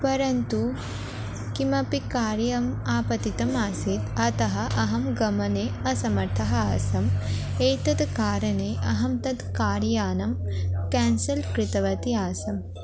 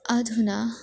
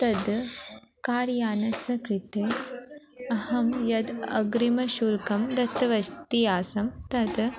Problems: background sounds at intervals